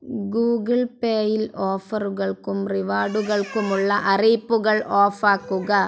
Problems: background conversations at intervals